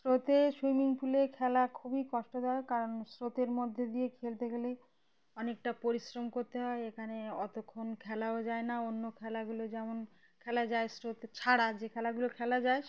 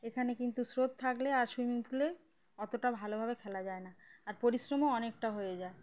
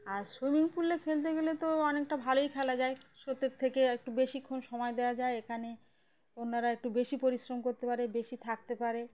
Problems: background conversations at intervals